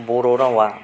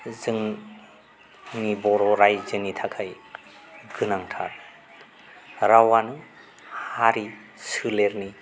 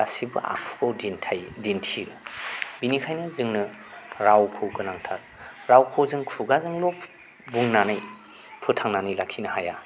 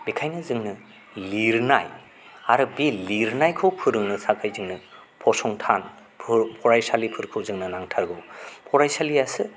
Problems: none marked